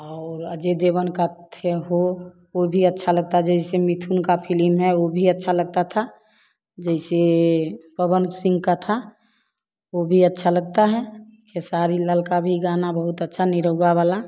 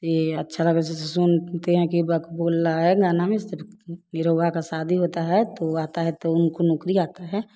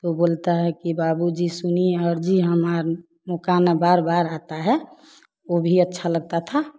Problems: background sounds at intervals